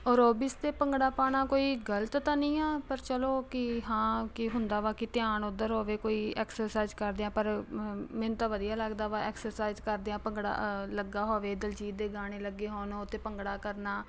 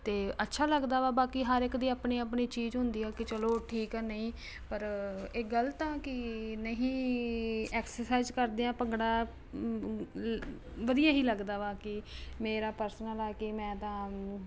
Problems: constant background noise